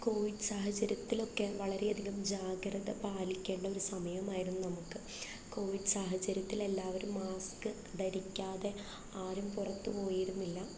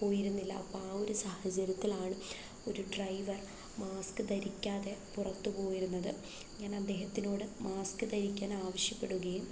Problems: low volume